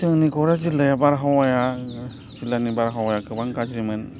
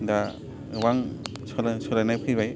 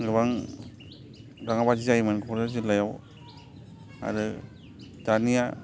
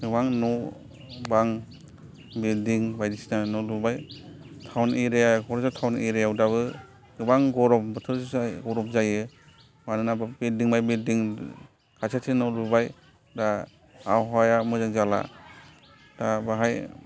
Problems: background sounds at intervals, continuous background conversations